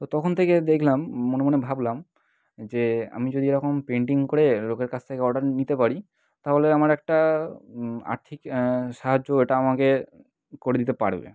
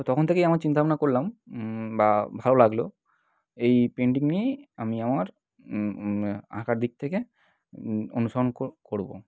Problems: none marked